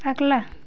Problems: none marked